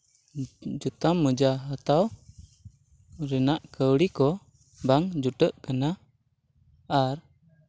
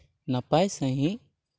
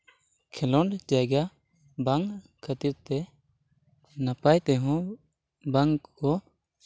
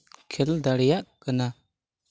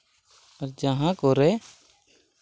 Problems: background sounds at intervals, background conversations at intervals